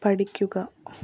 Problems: none marked